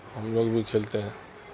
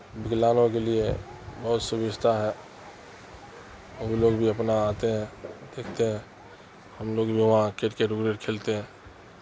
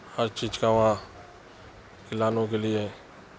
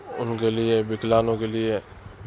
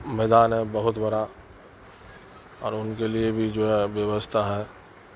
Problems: constant background noise